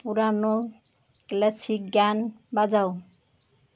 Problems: constant background noise, background conversations at intervals